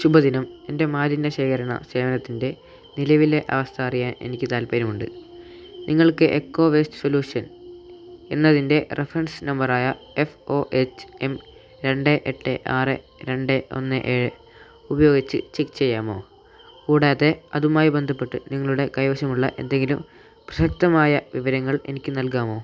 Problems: constant background noise, low volume